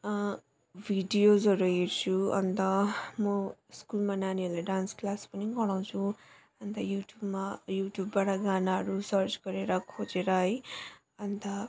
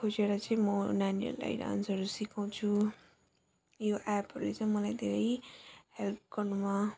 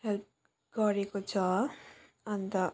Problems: none marked